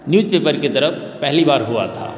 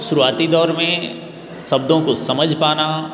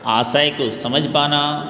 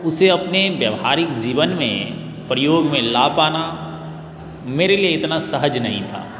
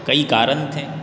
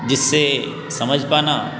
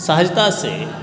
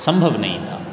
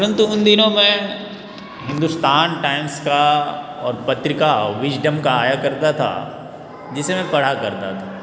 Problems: constant background noise